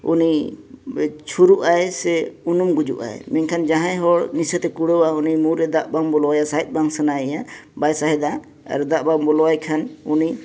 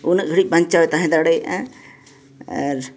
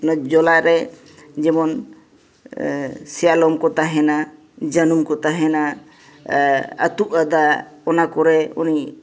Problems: background sounds at intervals